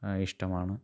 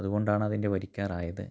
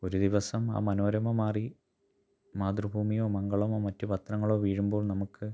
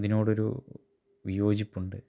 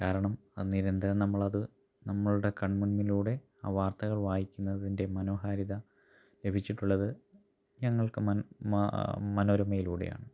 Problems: low volume